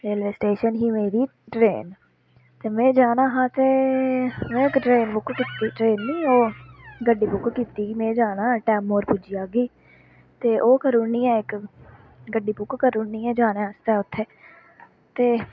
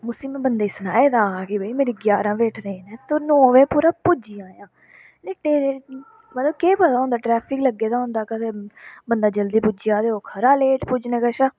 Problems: constant background noise